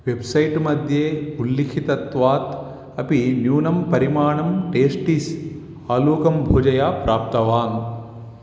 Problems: none marked